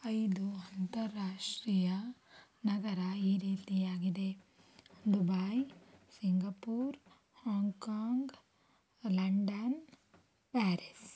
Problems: low volume